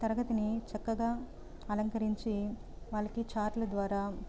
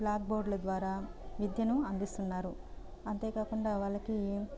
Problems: none marked